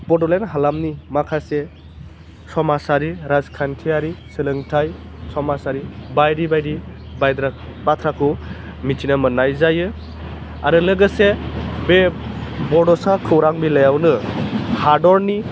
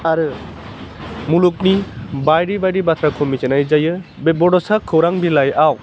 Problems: constant background noise